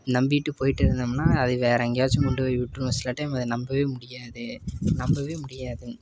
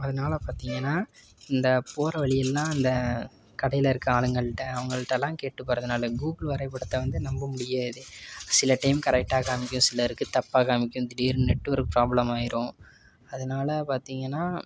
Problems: background conversations at intervals